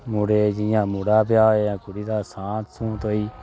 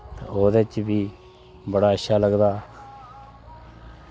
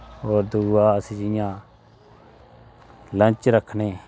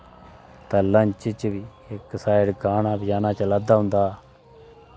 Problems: constant background noise